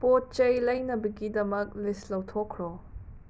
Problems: none marked